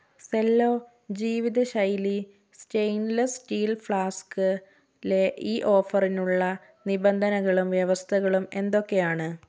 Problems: none marked